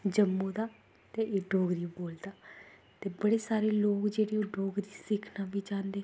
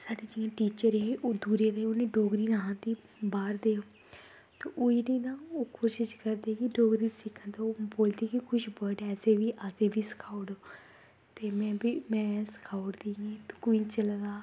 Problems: constant background noise